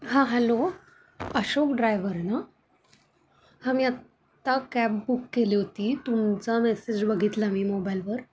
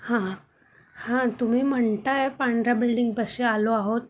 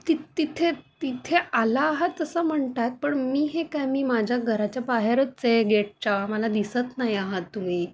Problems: none marked